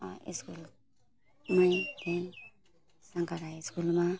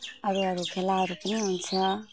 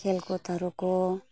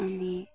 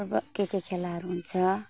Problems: constant background noise, low volume